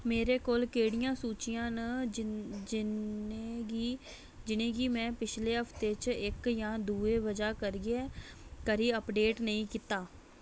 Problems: none marked